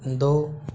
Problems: constant background noise